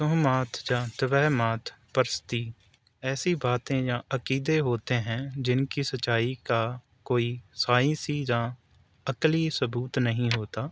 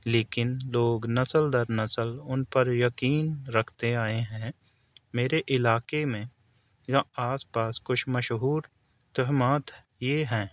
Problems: none marked